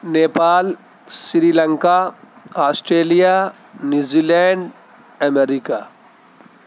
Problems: constant background noise